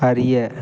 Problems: none marked